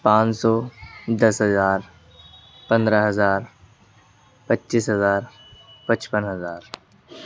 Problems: background sounds at intervals